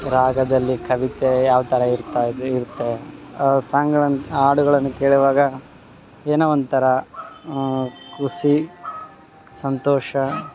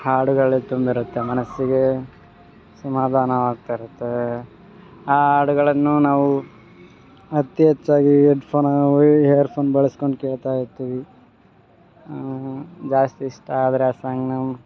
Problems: background sounds at intervals